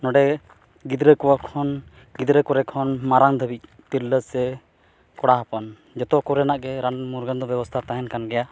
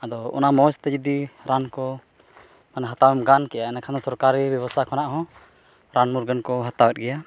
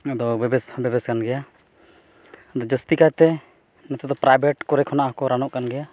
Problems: none marked